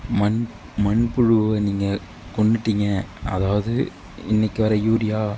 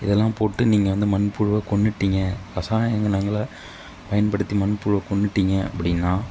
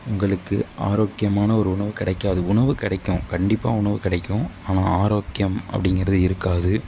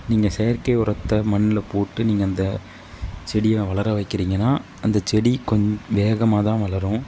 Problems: none marked